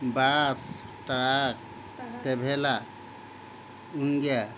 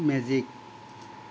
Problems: constant background noise